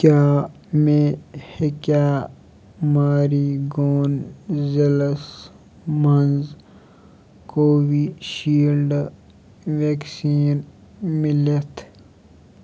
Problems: constant background noise